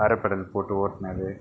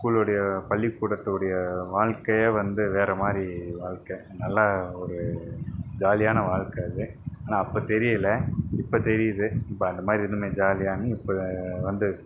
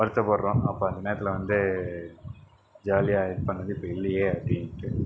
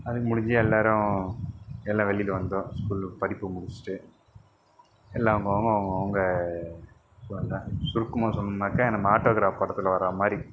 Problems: none marked